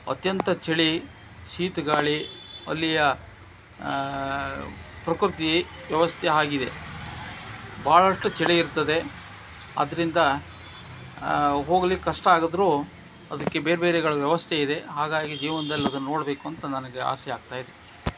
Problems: background sounds at intervals